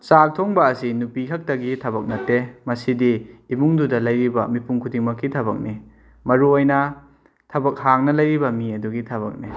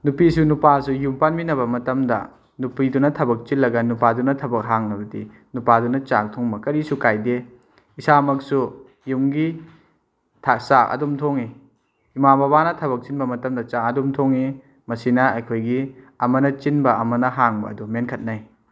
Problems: none marked